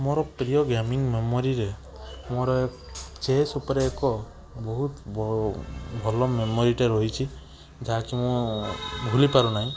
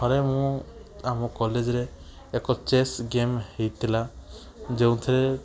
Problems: background sounds at intervals, background conversations at intervals